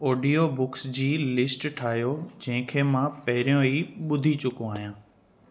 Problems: constant background noise